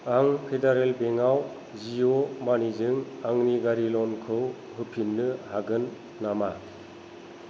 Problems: constant background noise